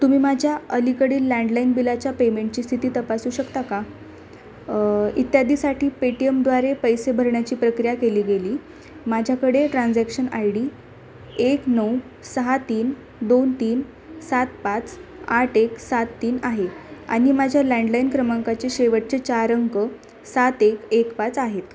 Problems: constant background noise, continuous background conversations